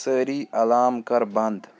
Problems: background conversations at intervals